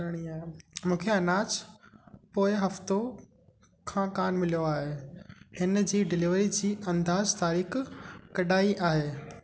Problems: constant background noise, echo